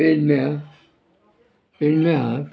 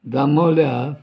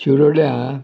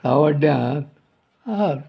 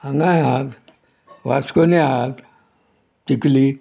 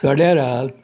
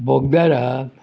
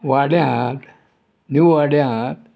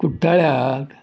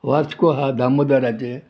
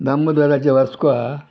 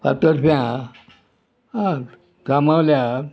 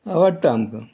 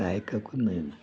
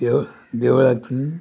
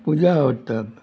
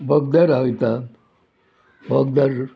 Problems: constant background noise